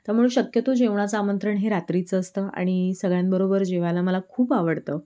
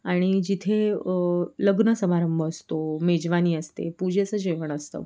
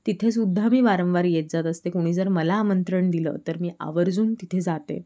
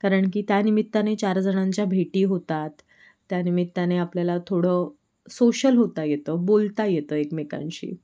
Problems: background sounds at intervals